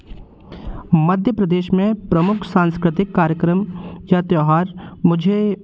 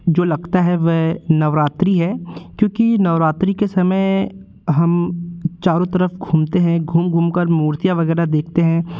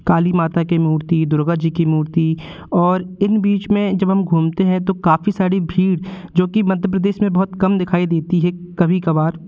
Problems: constant background noise, continuous background conversations